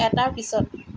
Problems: constant background noise